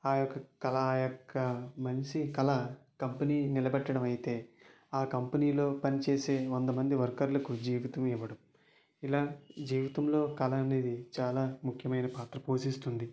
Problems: low volume